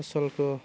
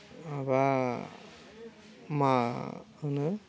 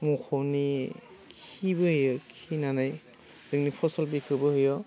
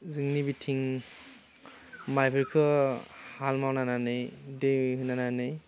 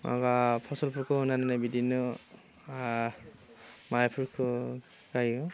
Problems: constant background noise